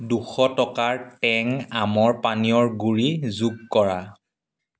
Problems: background sounds at intervals